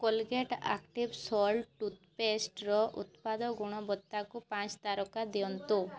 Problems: constant background noise, continuous background conversations